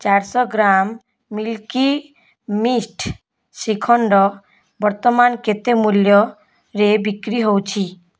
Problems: none marked